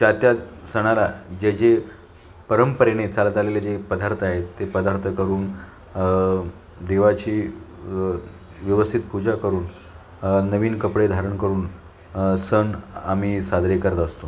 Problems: none marked